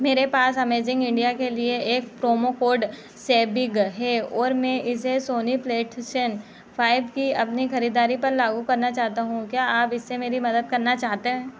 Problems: constant background noise